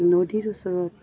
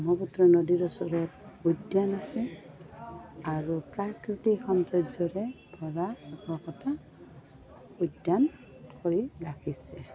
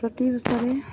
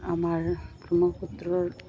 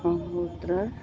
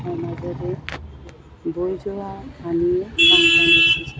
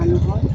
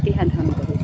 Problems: constant background noise, continuous background conversations